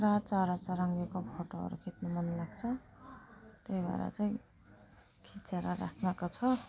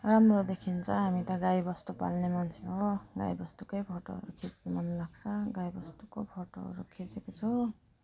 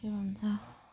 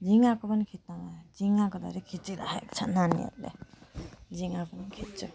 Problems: none marked